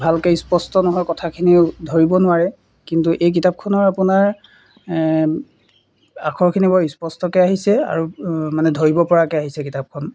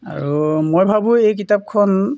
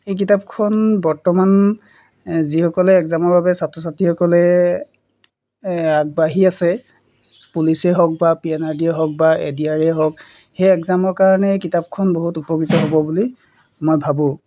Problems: none marked